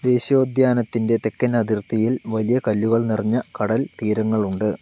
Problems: constant background noise